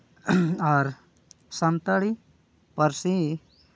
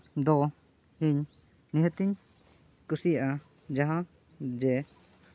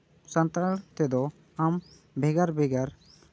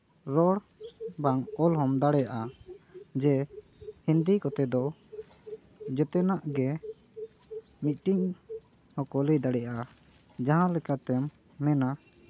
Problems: background sounds at intervals